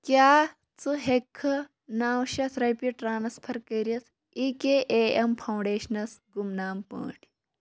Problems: none marked